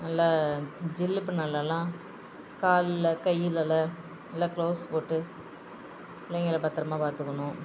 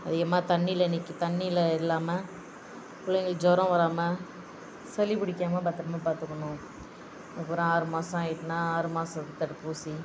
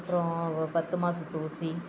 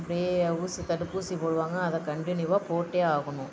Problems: constant background noise